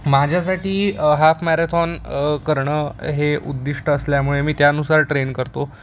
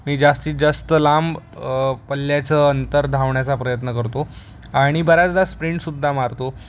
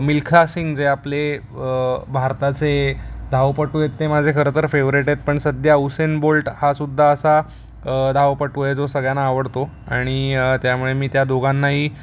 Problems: none marked